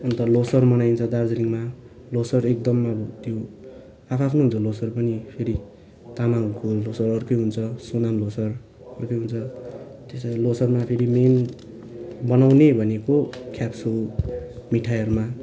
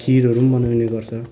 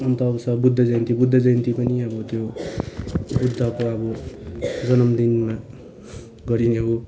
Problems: constant background noise, continuous background conversations